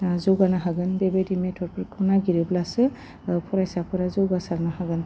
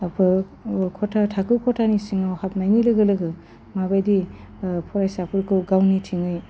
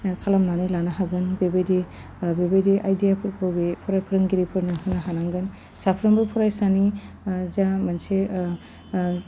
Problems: none marked